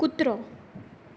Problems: background sounds at intervals